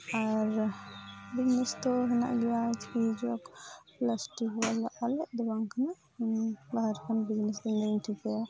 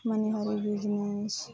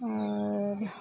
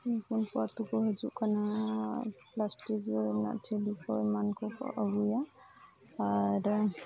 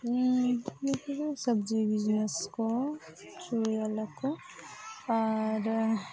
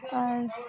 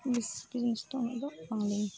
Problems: background sounds at intervals, background conversations at intervals, low volume